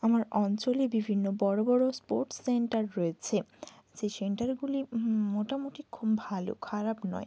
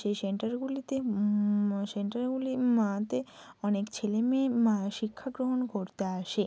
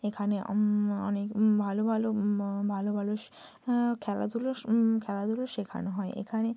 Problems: constant background noise, low volume